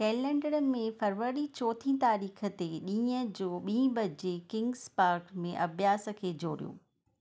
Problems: none marked